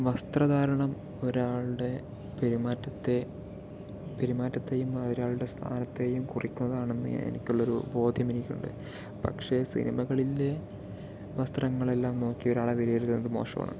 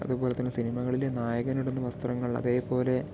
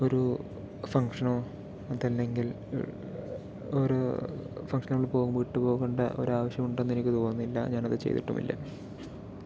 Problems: background sounds at intervals, low volume